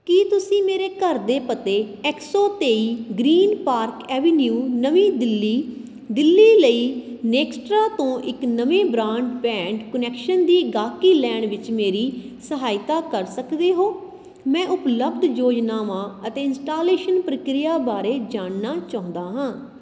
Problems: constant background noise